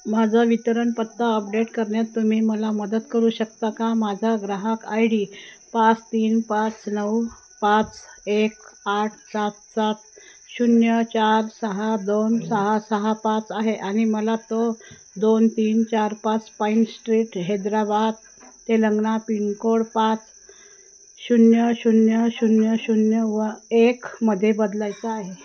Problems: none marked